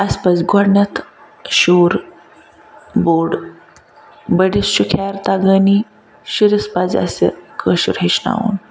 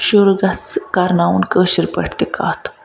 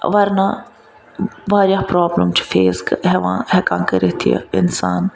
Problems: background sounds at intervals